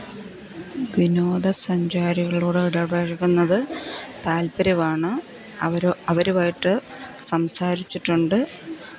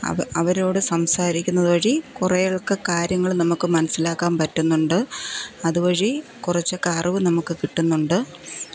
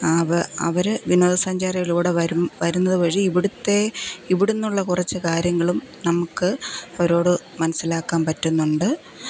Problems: constant background noise, low volume